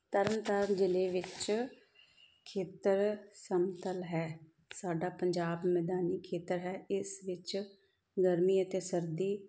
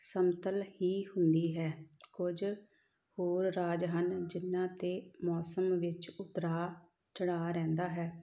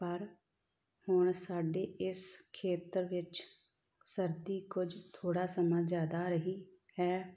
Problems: background sounds at intervals